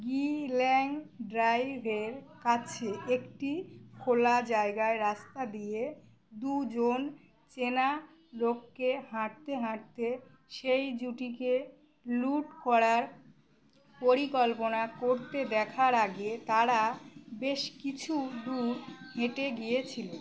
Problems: constant background noise